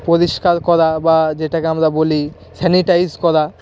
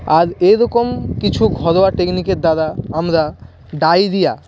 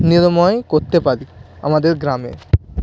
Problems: constant background noise